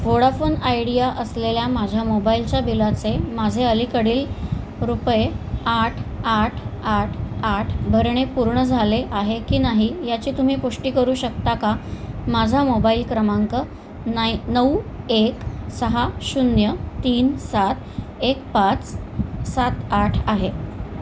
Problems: none marked